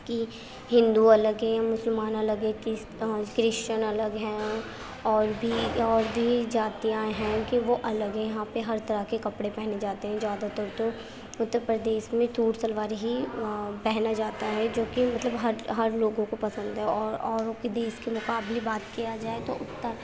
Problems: constant background noise